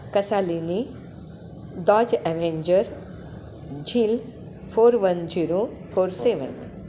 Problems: constant background noise